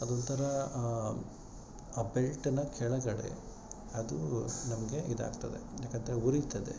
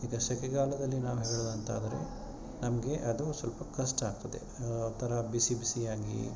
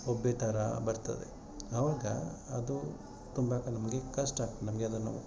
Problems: none marked